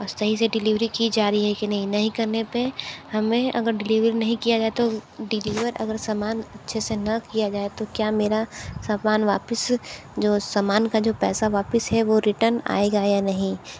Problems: constant background noise